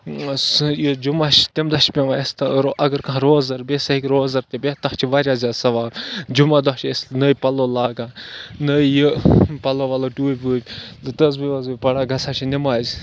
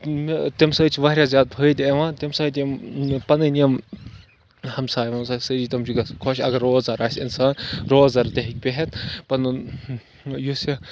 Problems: constant background noise